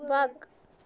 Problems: none marked